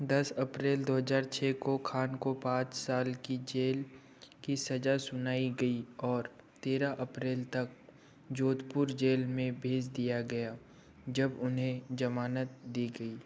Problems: background sounds at intervals